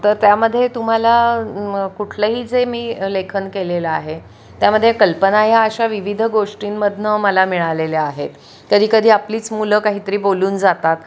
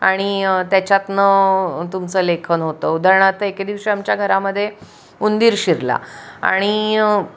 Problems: background sounds at intervals